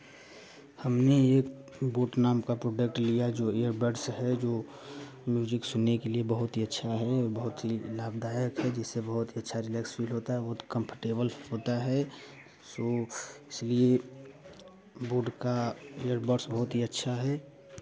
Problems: none marked